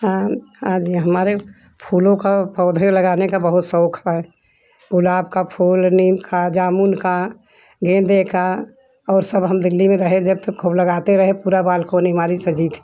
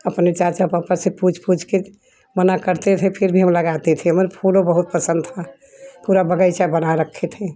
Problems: constant background noise